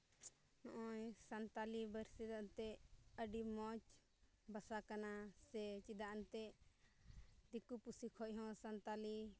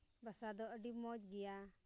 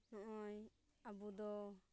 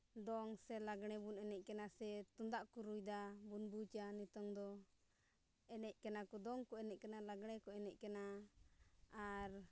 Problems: low volume